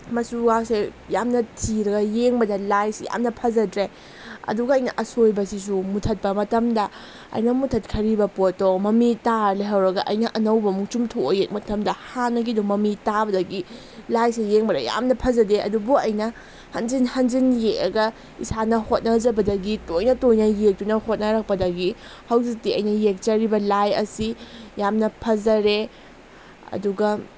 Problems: constant background noise